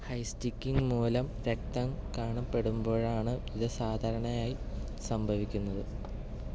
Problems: background sounds at intervals, low volume